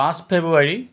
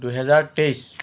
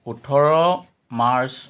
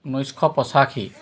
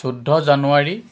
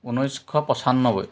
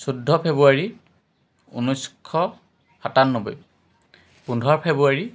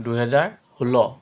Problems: background sounds at intervals, background conversations at intervals